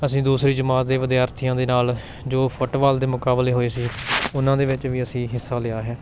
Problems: constant background noise, background conversations at intervals